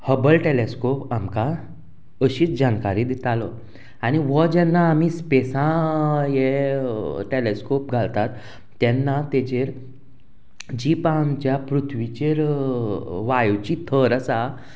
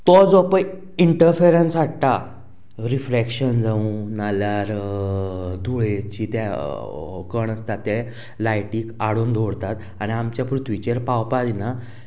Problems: constant background noise